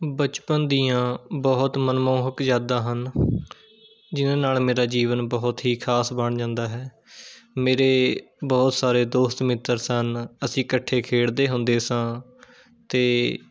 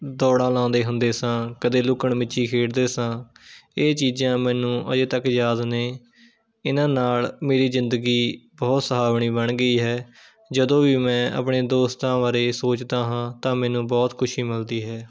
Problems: background sounds at intervals